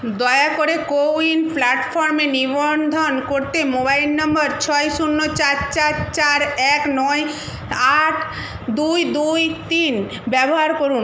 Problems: none marked